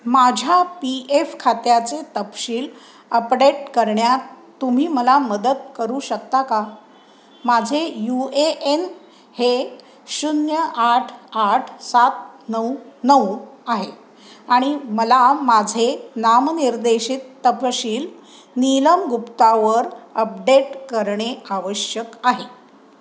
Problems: constant background noise